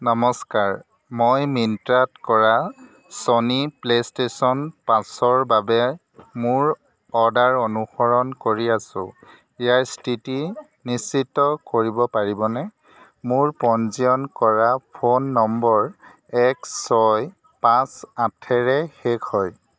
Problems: constant background noise, background conversations at intervals